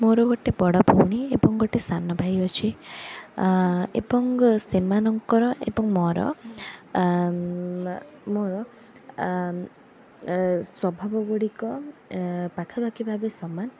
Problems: background sounds at intervals